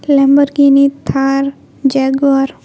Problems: constant background noise